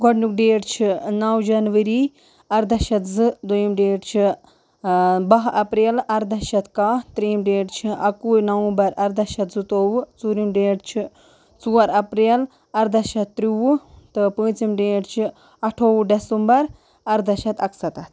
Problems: none marked